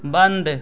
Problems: none marked